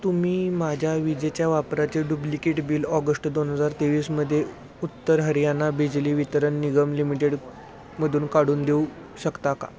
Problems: constant background noise, background conversations at intervals